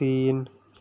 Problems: constant background noise